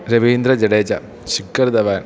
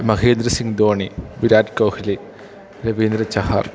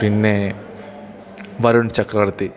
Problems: background sounds at intervals